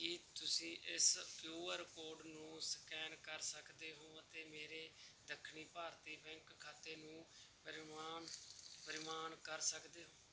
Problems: background sounds at intervals